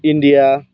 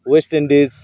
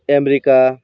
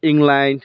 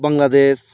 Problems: none marked